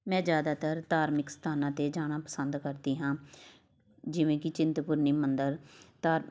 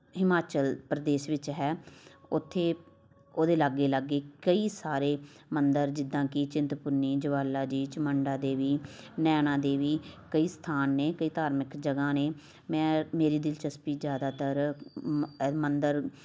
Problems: background sounds at intervals, continuous background conversations